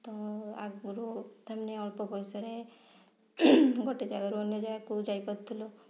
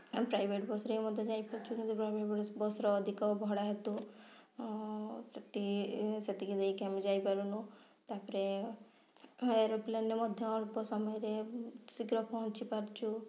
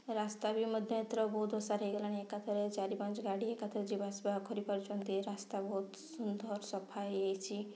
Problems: low volume